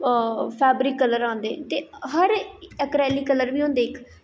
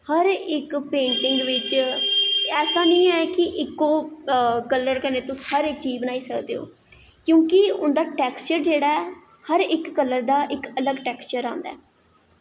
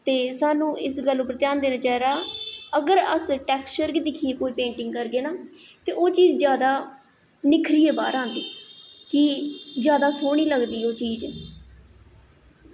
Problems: echo